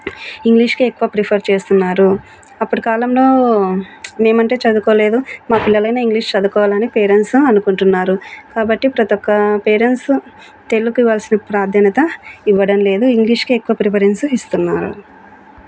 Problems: constant background noise